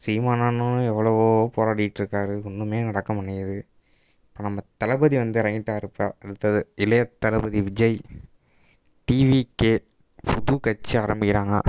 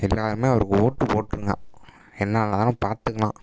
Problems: background sounds at intervals